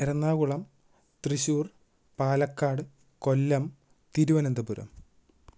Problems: none marked